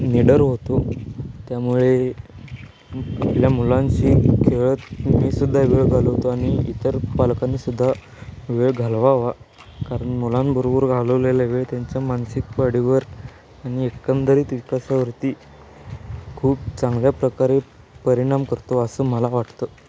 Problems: none marked